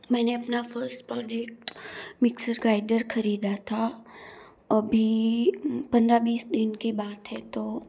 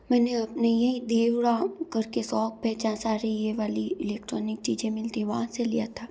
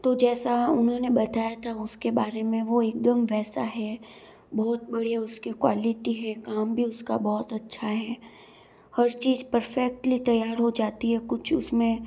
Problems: none marked